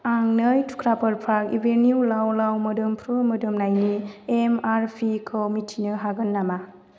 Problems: constant background noise